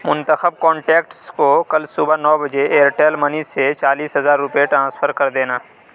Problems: none marked